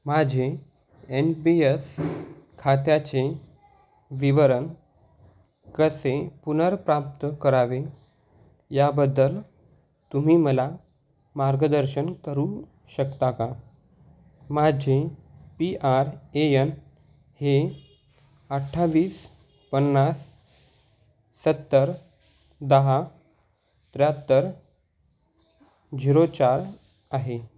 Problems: constant background noise